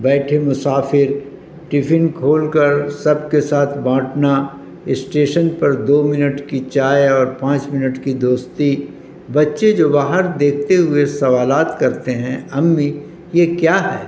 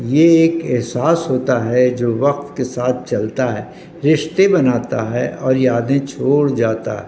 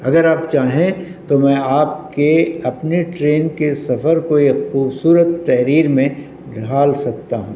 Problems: constant background noise